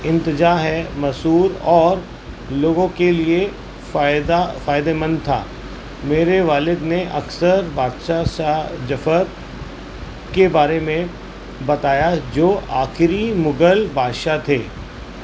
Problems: constant background noise